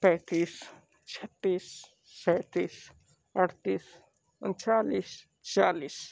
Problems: low volume